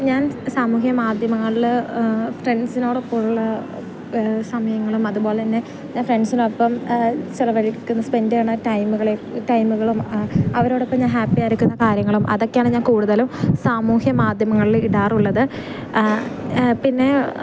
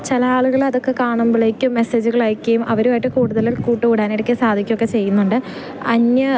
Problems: background sounds at intervals